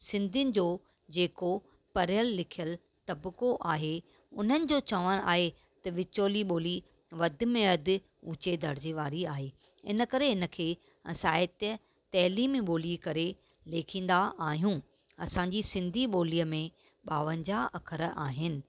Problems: none marked